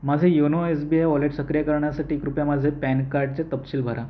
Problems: background sounds at intervals